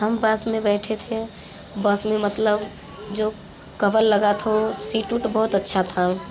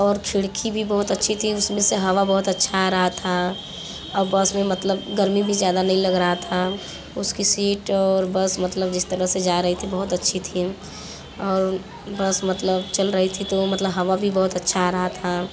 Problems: constant background noise, continuous background conversations